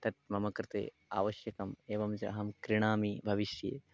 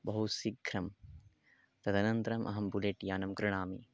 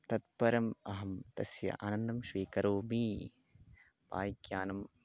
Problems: background sounds at intervals, low volume